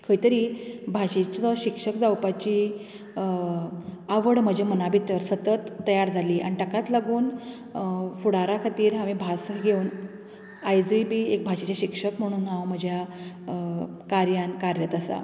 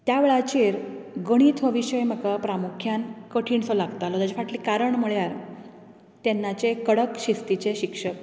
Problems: constant background noise